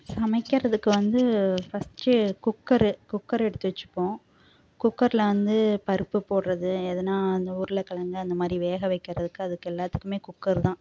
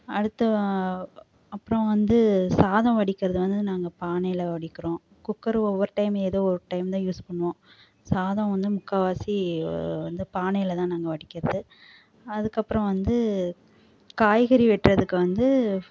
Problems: none marked